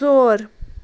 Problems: constant background noise